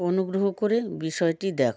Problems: background conversations at intervals